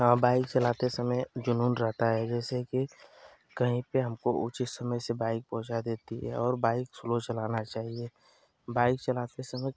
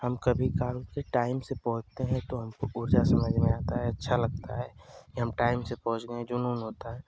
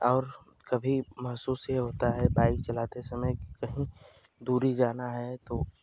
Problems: constant background noise